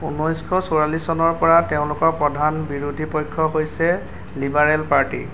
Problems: constant background noise